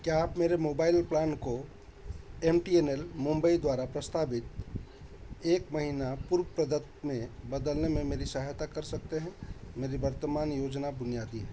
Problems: constant background noise